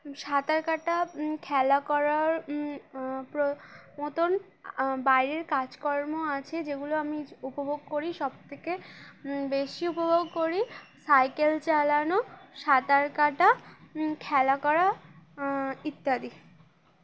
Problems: none marked